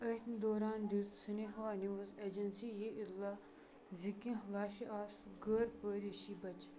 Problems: background sounds at intervals